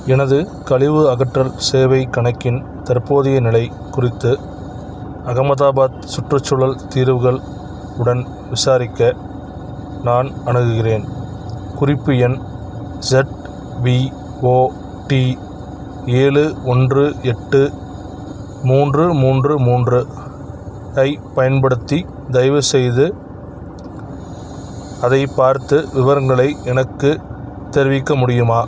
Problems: background sounds at intervals, background conversations at intervals